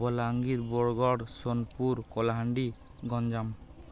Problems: none marked